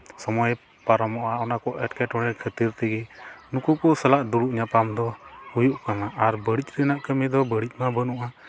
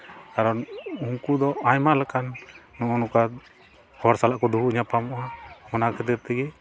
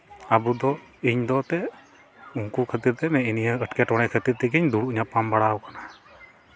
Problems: constant background noise